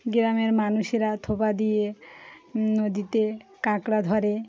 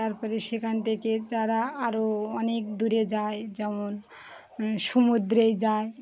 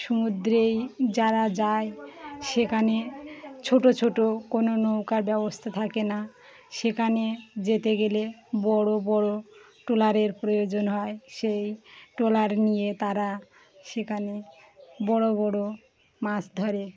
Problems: background sounds at intervals, background conversations at intervals